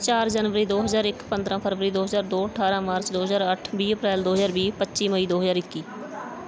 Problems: background conversations at intervals